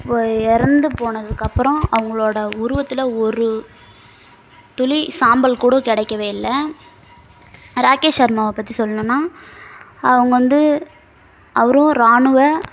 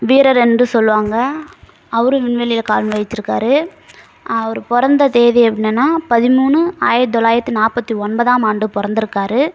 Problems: constant background noise